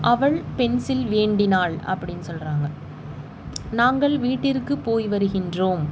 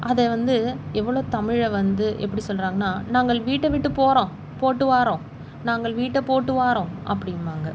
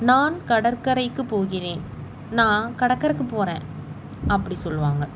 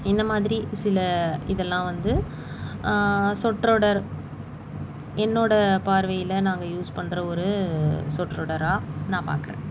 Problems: constant background noise